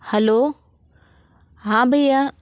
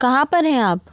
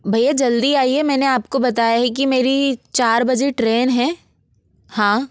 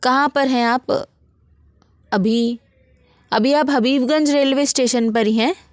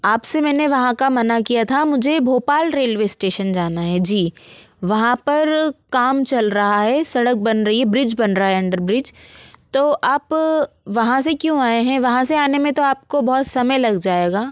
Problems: constant background noise